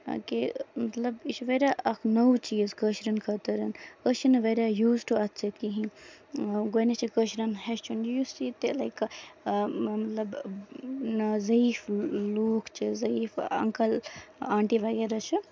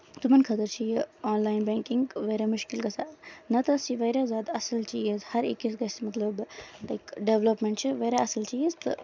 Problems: background sounds at intervals